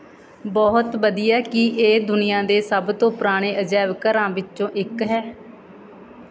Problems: background sounds at intervals, background conversations at intervals